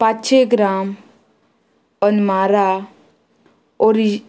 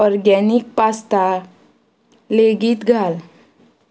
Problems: none marked